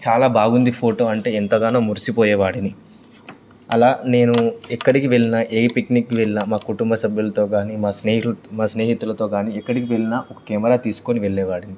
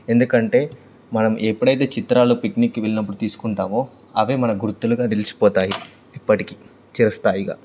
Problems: none marked